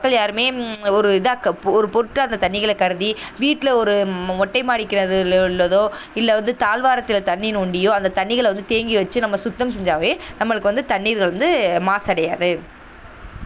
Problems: none marked